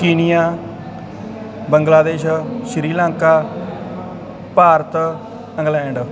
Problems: constant background noise